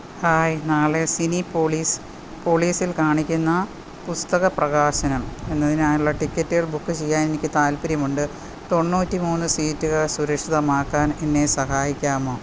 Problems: none marked